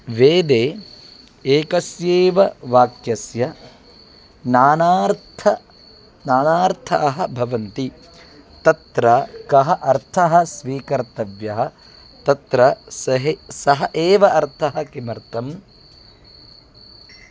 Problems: none marked